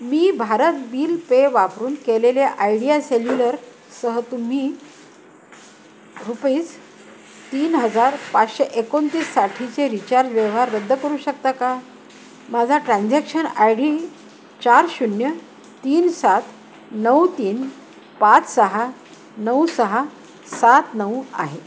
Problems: constant background noise